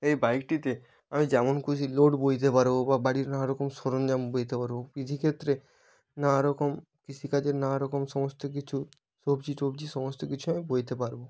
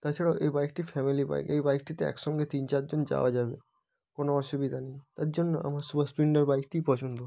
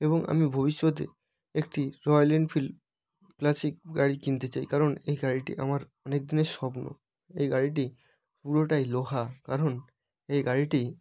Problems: background sounds at intervals